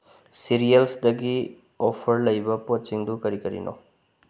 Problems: low volume